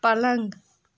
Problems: none marked